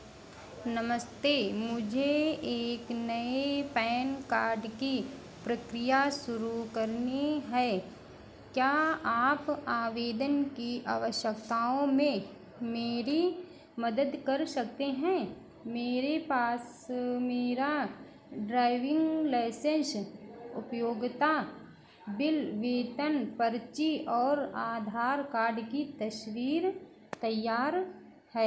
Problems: none marked